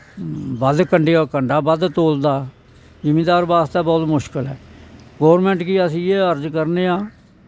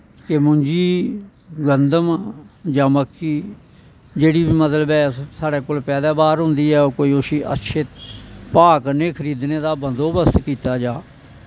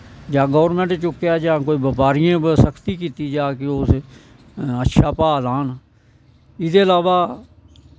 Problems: constant background noise